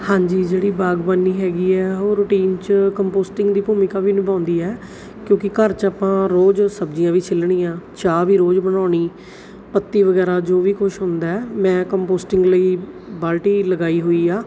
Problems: background sounds at intervals